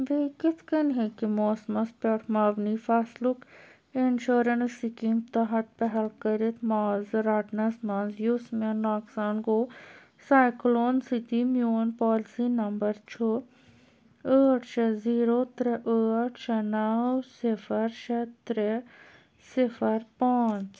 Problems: none marked